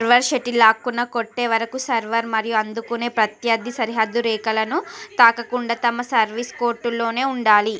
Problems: continuous background conversations